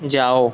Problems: none marked